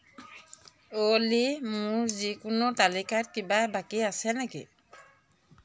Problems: background sounds at intervals